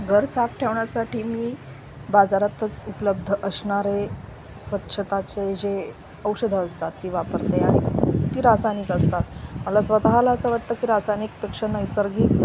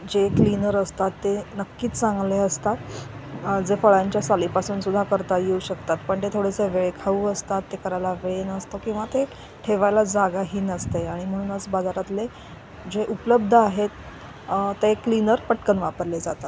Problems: none marked